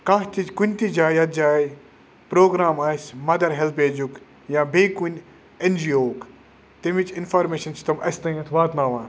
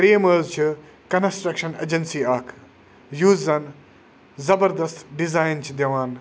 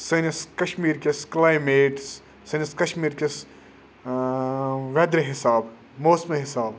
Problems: none marked